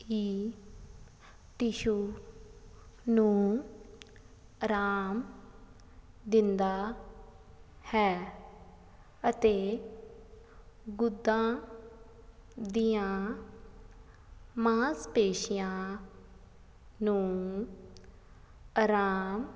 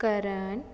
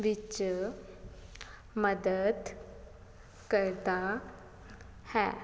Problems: none marked